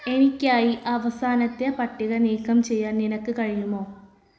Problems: background sounds at intervals